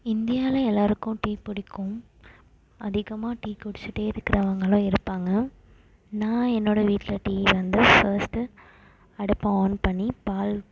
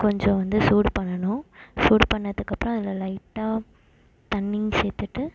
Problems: constant background noise